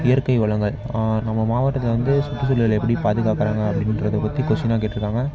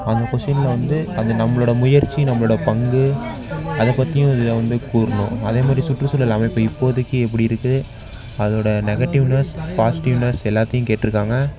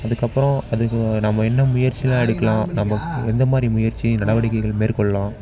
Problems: background sounds at intervals, background conversations at intervals